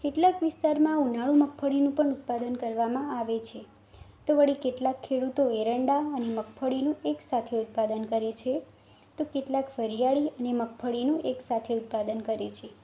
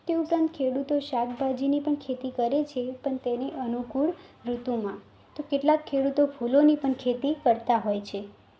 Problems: constant background noise